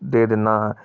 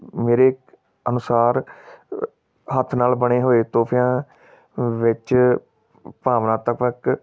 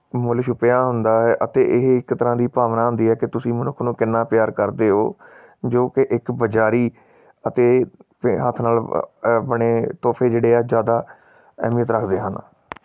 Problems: none marked